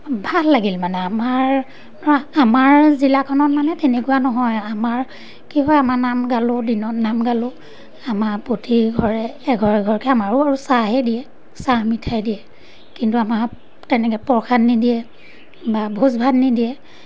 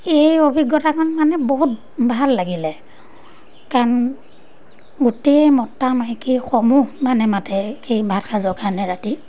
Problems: none marked